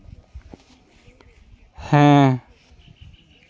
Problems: constant background noise